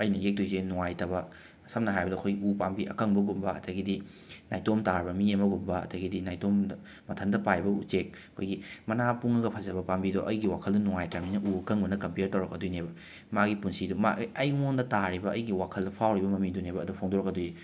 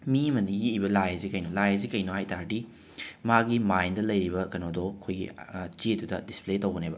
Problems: none marked